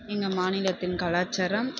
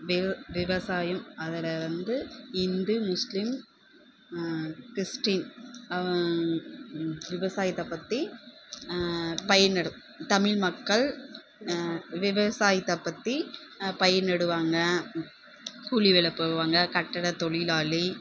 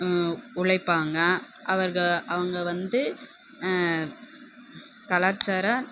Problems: constant background noise, background conversations at intervals